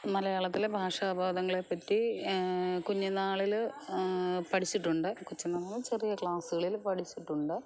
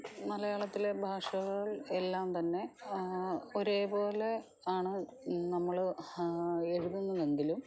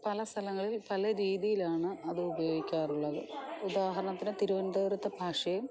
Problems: low volume